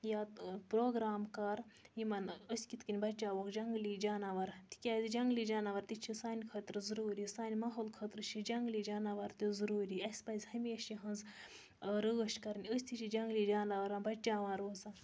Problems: background sounds at intervals